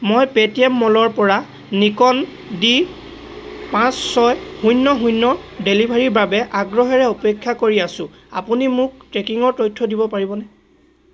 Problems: constant background noise, continuous background conversations